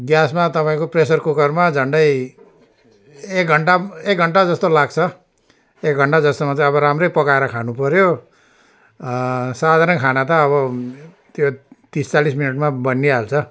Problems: none marked